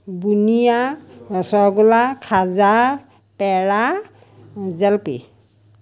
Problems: none marked